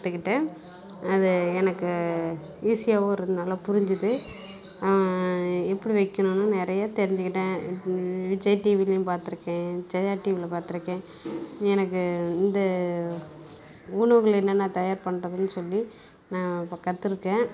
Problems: constant background noise